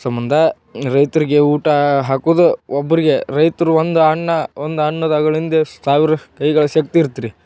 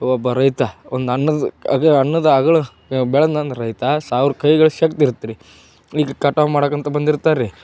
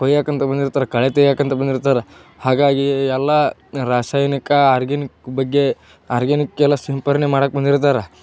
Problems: none marked